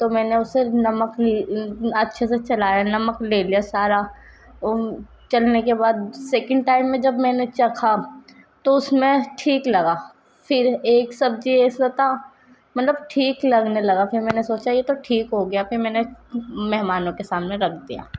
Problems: constant background noise, background conversations at intervals